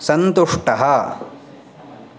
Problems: constant background noise